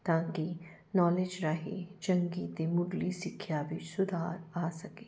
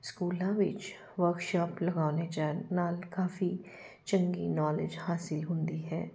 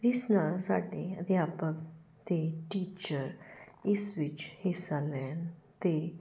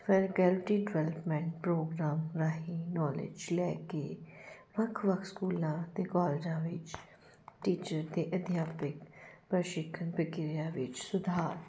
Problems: none marked